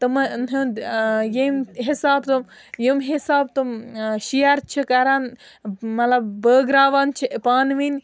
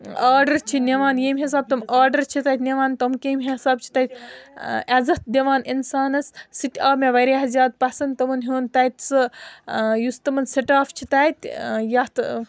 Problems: continuous background conversations